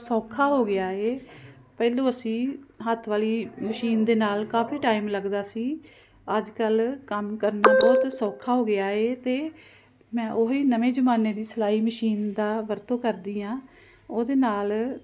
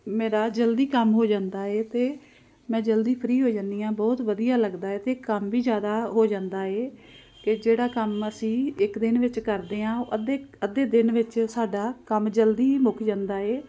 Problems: constant background noise